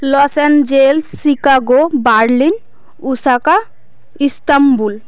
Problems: constant background noise, background conversations at intervals